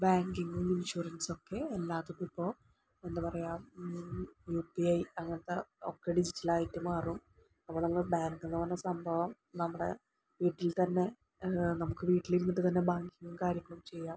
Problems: low volume